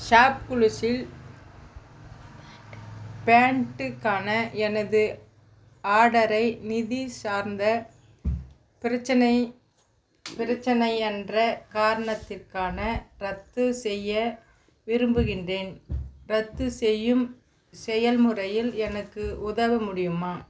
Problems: constant background noise